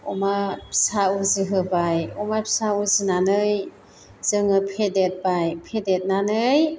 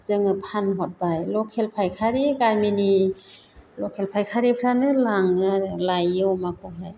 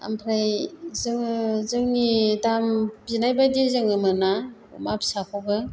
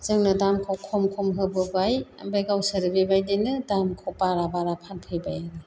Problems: none marked